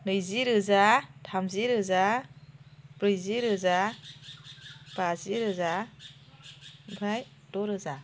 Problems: constant background noise